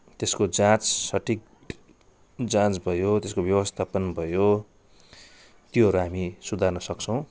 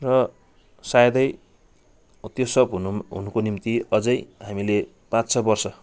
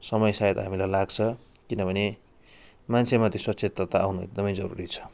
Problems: none marked